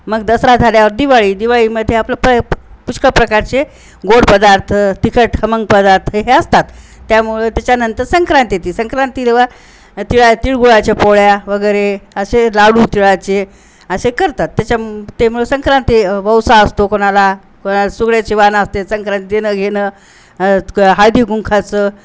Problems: constant background noise, background conversations at intervals